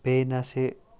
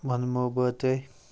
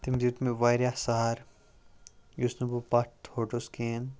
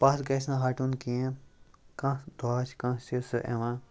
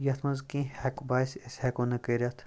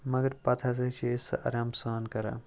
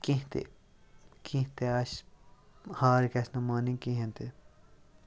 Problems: none marked